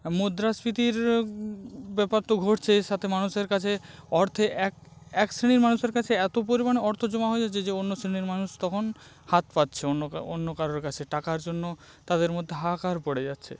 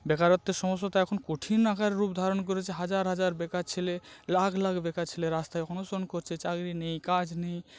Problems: background sounds at intervals